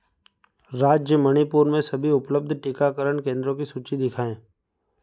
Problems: background sounds at intervals